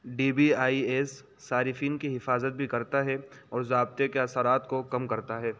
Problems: constant background noise